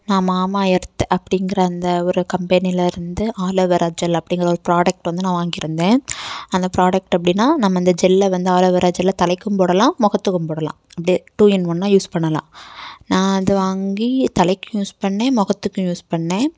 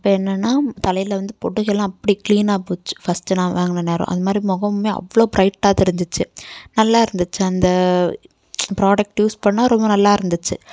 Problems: background conversations at intervals